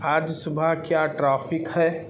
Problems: constant background noise